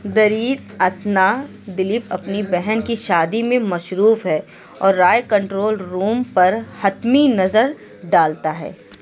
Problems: constant background noise, background conversations at intervals